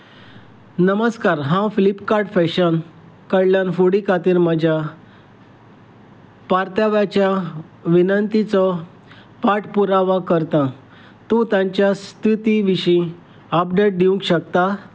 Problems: constant background noise